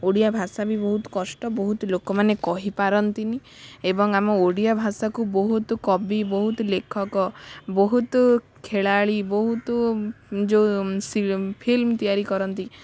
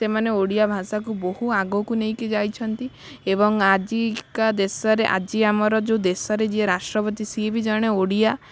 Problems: background sounds at intervals